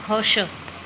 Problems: background sounds at intervals